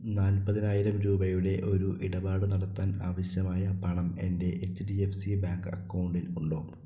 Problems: low volume